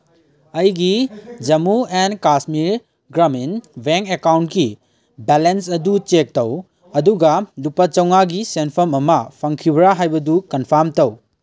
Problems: none marked